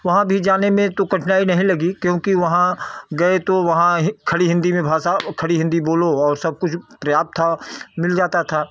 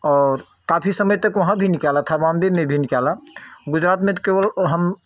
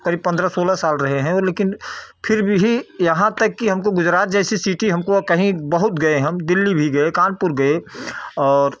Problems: none marked